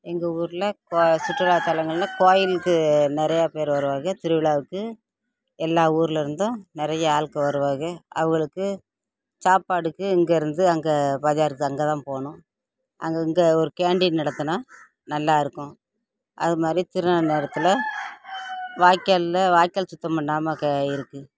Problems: constant background noise, background conversations at intervals